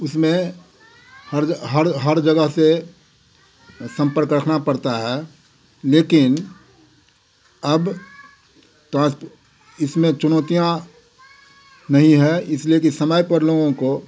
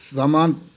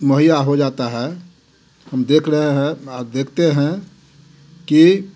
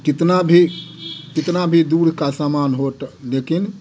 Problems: none marked